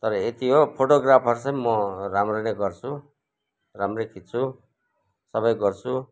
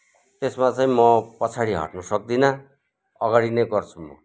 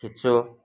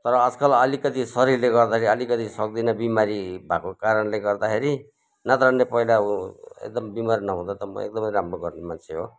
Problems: none marked